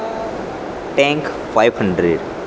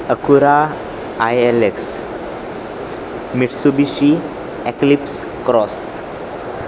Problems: constant background noise